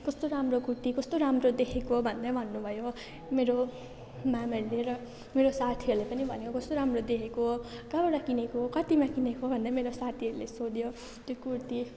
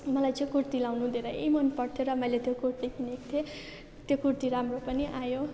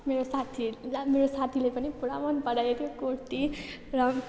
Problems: none marked